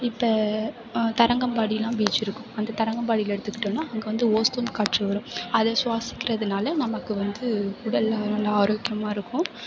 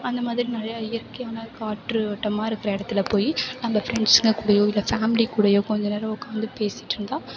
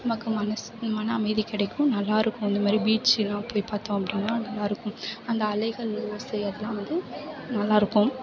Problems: background sounds at intervals